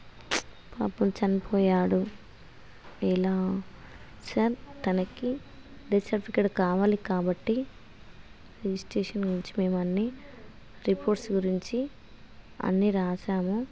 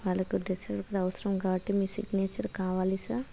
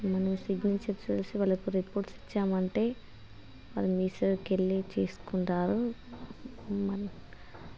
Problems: constant background noise